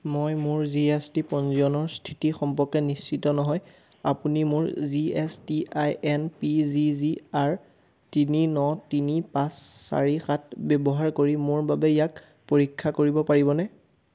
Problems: none marked